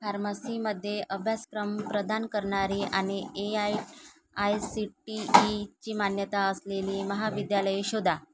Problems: background sounds at intervals